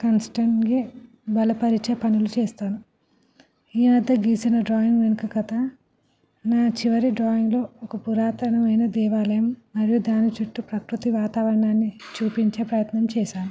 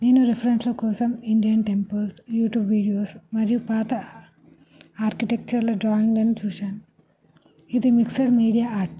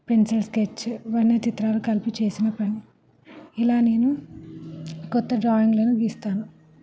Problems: constant background noise, continuous background conversations